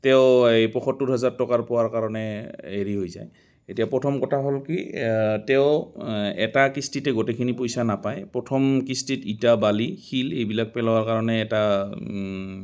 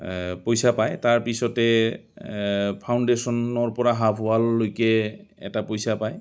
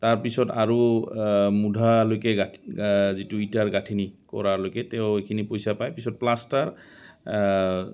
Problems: constant background noise, background conversations at intervals